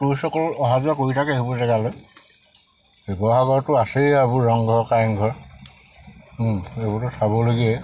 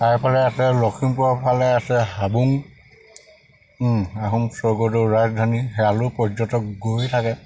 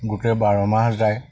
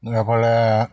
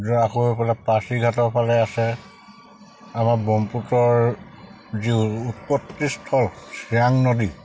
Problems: constant background noise